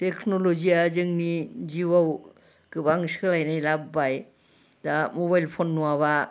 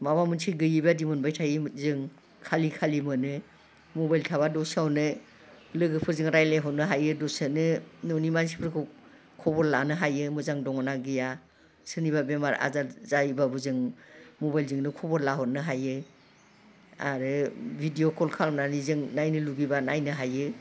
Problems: background sounds at intervals